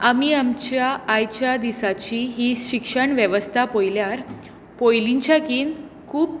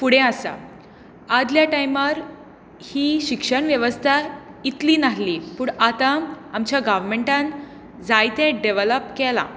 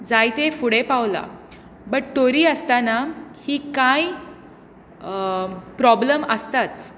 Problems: constant background noise